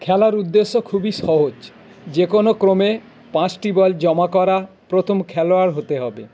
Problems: constant background noise